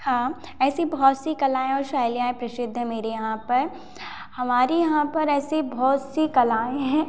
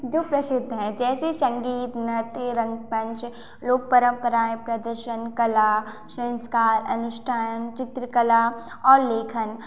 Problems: constant background noise